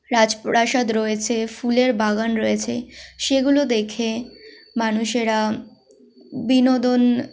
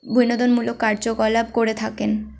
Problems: constant background noise, background conversations at intervals